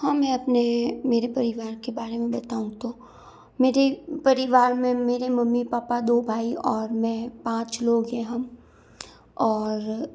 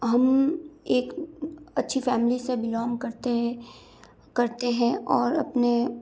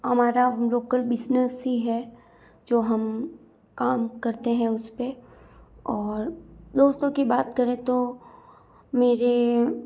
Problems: none marked